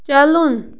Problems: background sounds at intervals